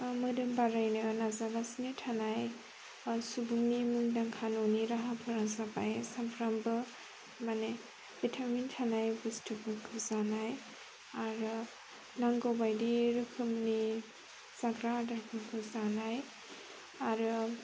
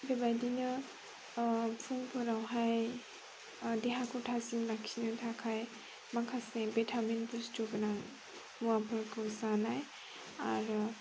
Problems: constant background noise